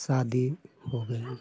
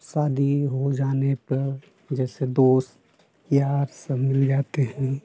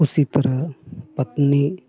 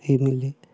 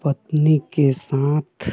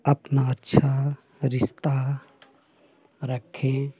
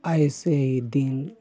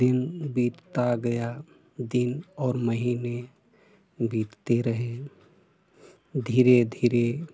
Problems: constant background noise